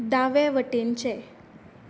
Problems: background sounds at intervals